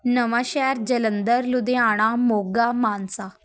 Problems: background sounds at intervals